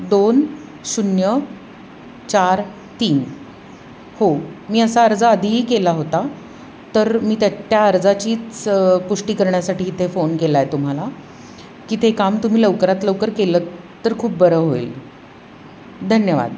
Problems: constant background noise